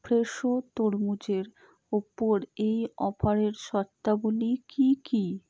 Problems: low volume